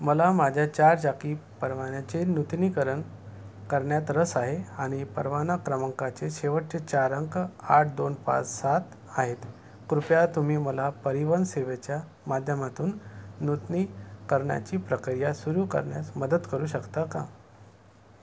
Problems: none marked